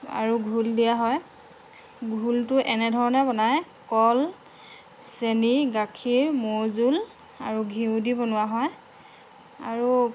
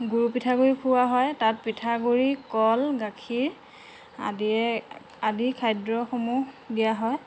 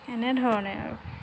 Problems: constant background noise